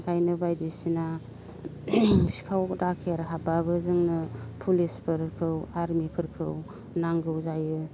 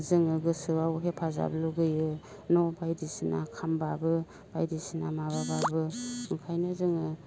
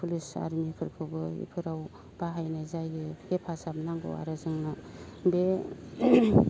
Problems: background sounds at intervals, low volume